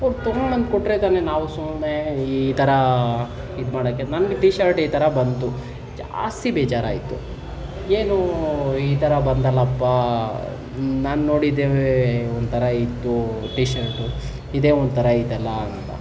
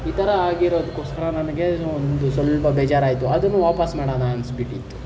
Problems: background sounds at intervals